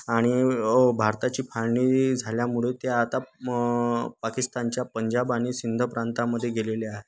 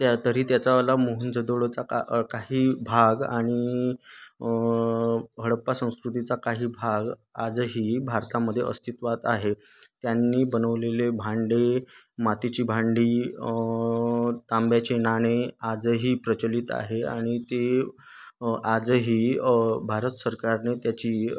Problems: constant background noise, background conversations at intervals